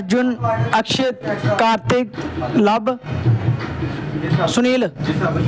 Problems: constant background noise